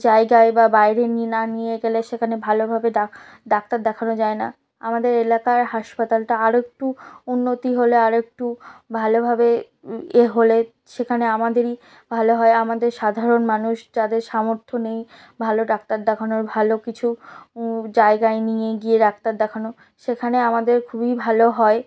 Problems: none marked